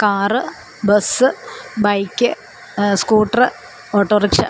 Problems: constant background noise